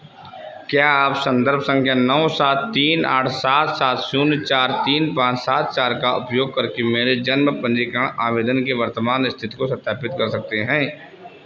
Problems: constant background noise